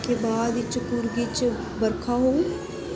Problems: constant background noise